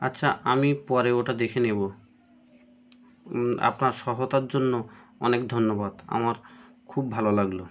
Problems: none marked